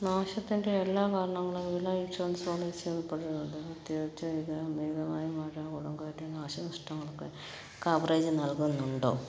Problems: low volume